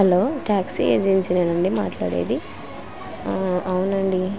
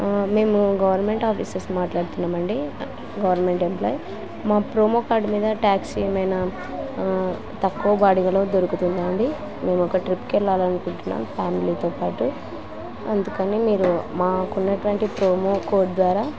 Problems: constant background noise